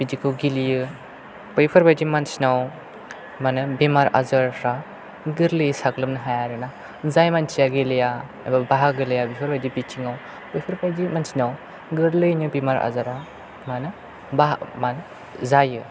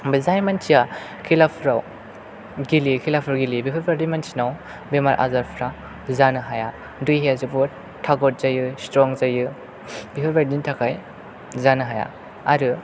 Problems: none marked